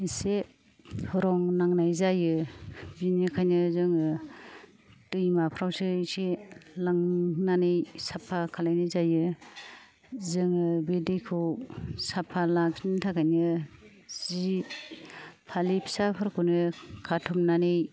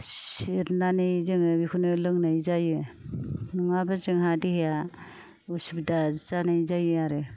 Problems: low volume